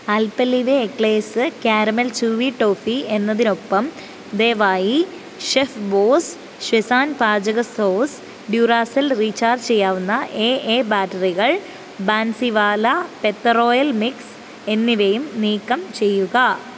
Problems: constant background noise